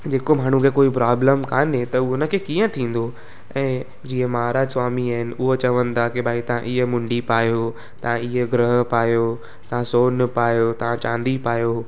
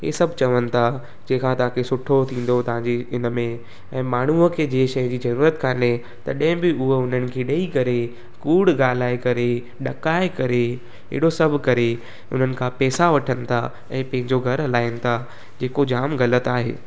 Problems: constant background noise